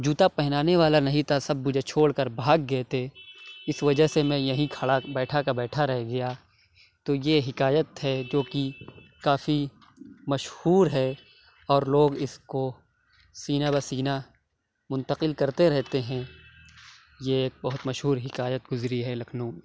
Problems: none marked